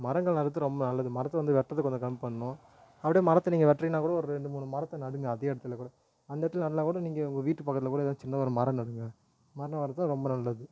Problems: none marked